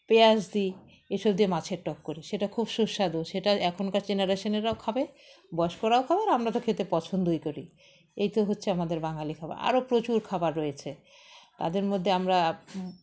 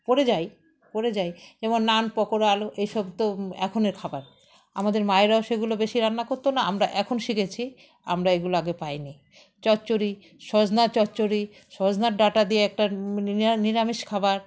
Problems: background sounds at intervals, background conversations at intervals